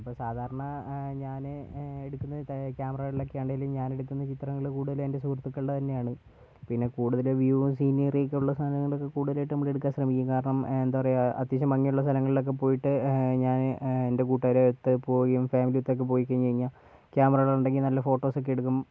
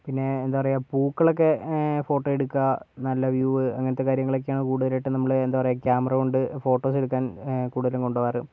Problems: low volume